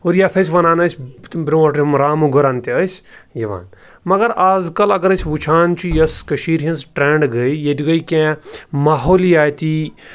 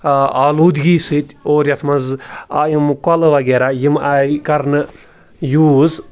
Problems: none marked